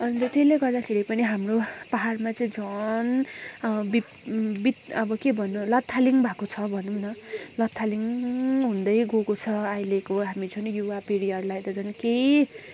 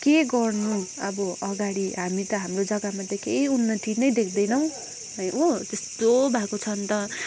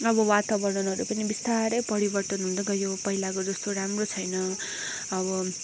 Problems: background sounds at intervals